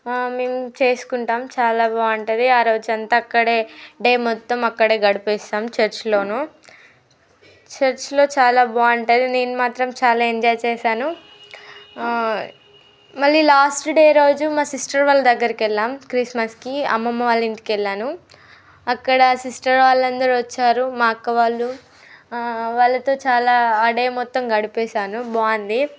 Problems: background sounds at intervals, background conversations at intervals